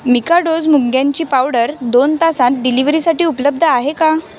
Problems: constant background noise, continuous background conversations